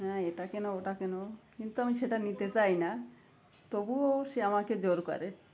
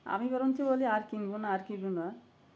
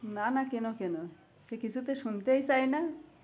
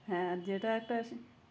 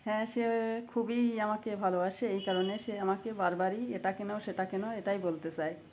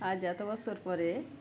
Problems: constant background noise